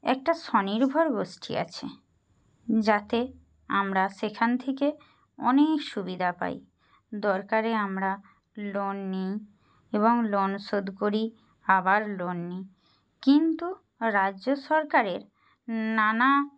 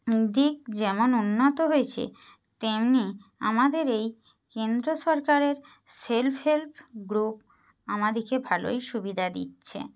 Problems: none marked